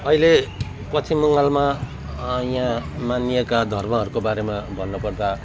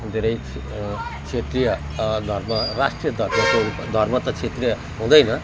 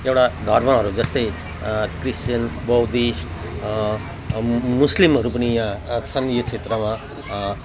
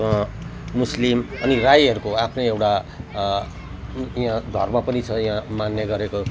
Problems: none marked